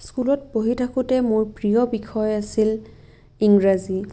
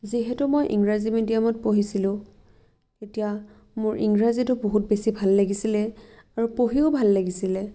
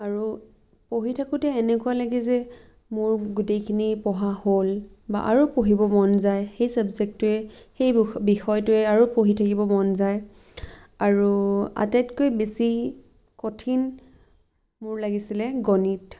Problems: none marked